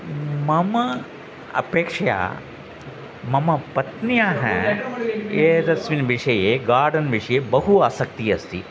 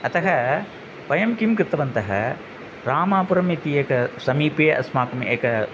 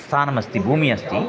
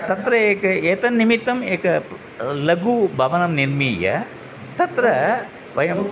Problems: none marked